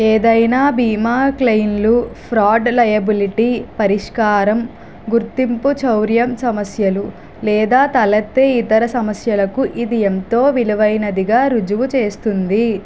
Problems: constant background noise